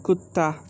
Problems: none marked